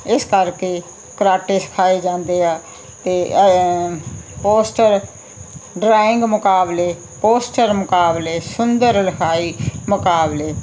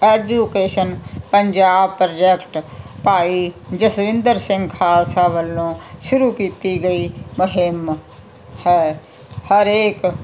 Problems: constant background noise